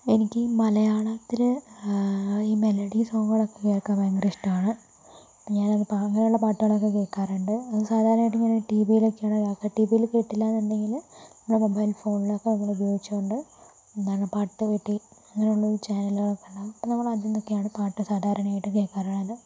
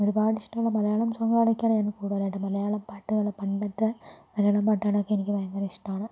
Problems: low volume